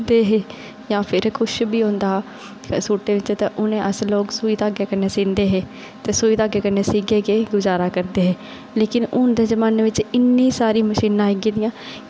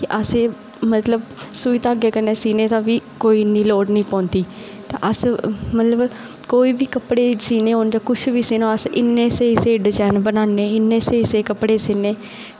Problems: constant background noise